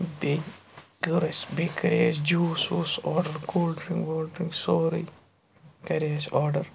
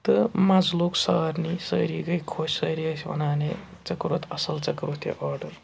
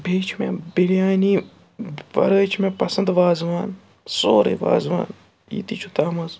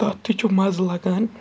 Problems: background sounds at intervals, background conversations at intervals